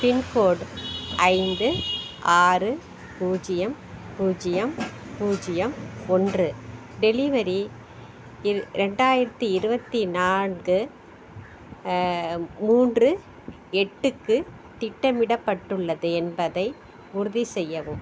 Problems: background sounds at intervals